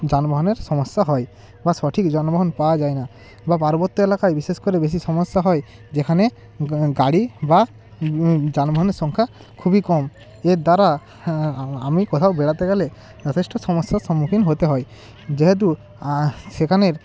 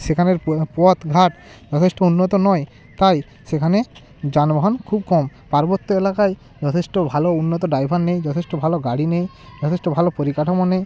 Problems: constant background noise, continuous background conversations